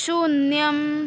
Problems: constant background noise